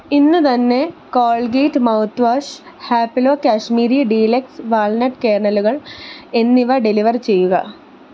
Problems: constant background noise